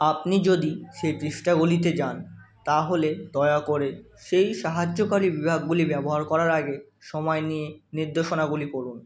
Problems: none marked